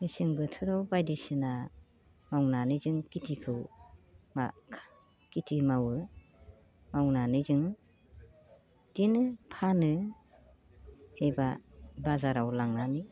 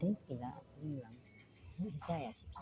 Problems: constant background noise